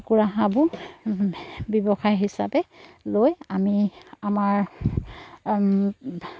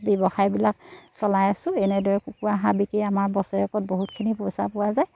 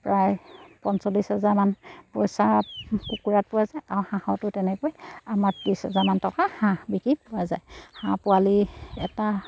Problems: none marked